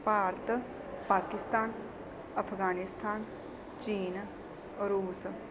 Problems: none marked